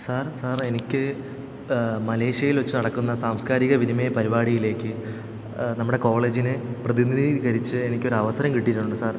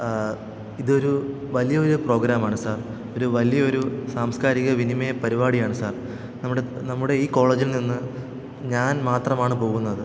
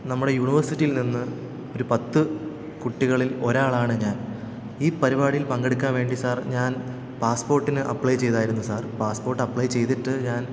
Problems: echo